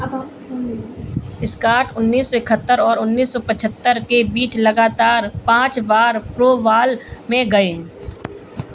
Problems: none marked